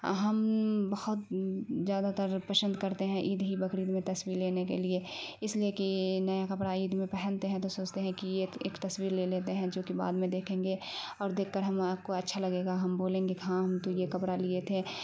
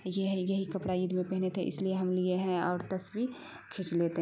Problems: constant background noise